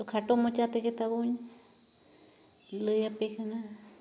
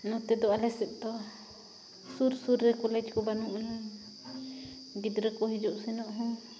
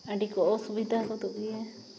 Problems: constant background noise